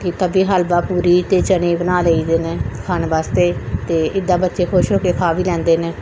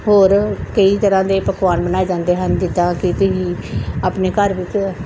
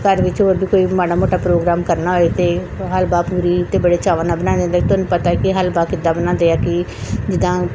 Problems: background sounds at intervals